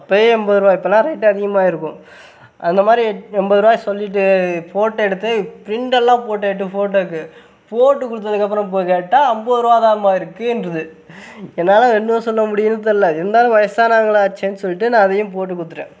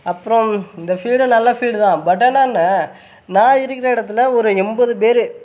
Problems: background sounds at intervals